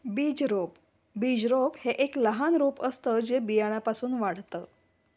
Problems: background sounds at intervals